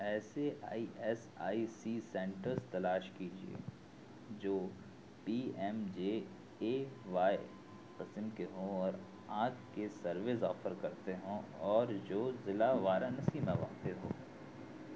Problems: constant background noise, low volume